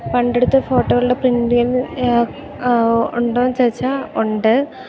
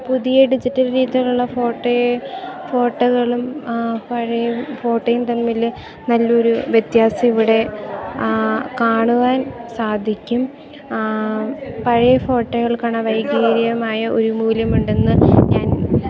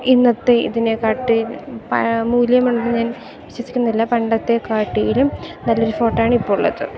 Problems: constant background noise